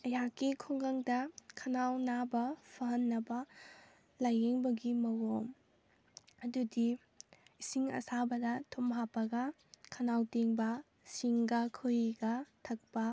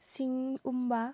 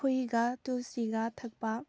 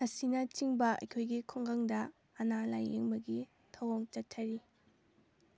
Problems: none marked